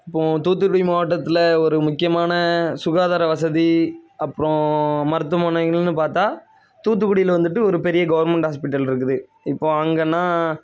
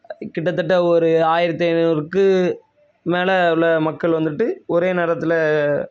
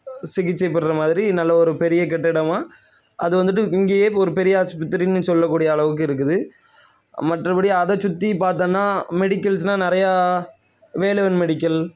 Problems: constant background noise